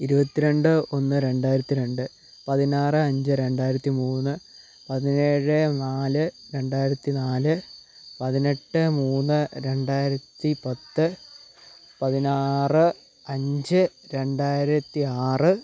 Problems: low volume